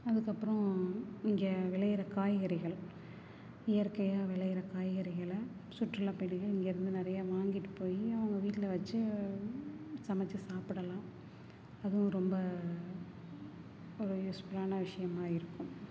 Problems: low volume